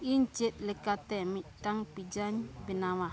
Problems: constant background noise, background conversations at intervals